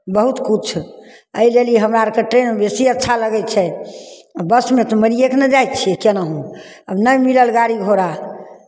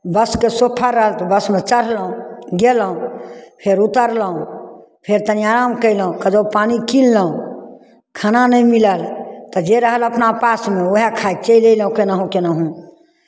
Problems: none marked